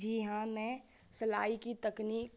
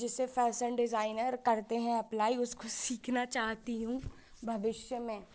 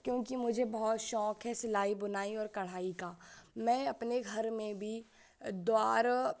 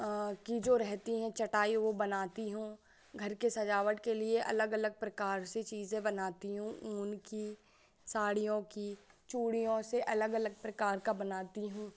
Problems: constant background noise